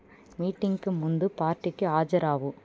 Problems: background sounds at intervals